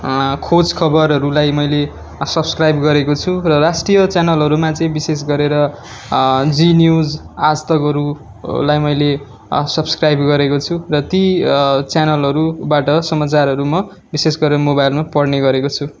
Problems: background sounds at intervals